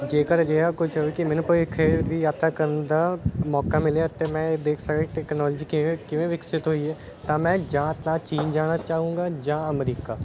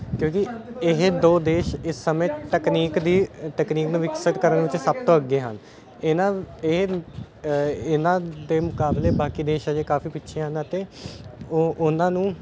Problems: constant background noise